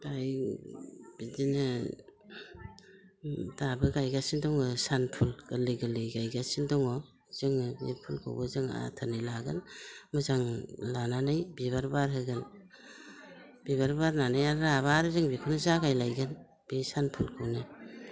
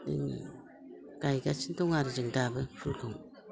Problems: constant background noise